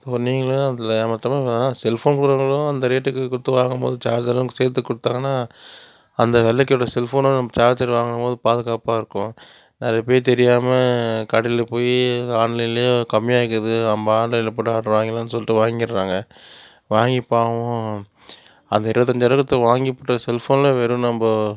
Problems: constant background noise